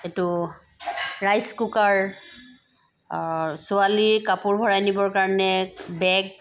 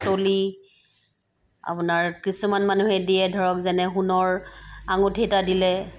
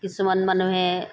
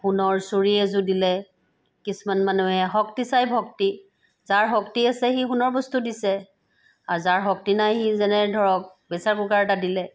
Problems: none marked